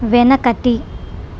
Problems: constant background noise